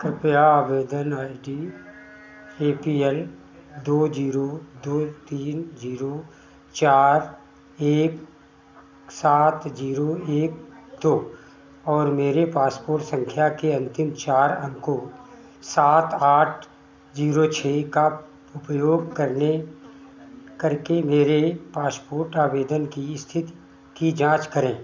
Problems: constant background noise